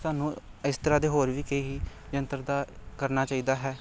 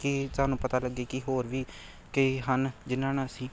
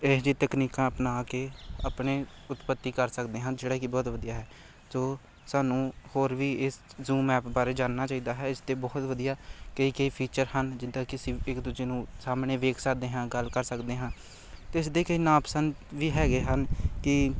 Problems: background sounds at intervals